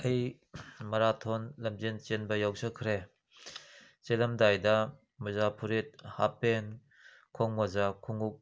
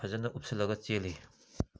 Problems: background sounds at intervals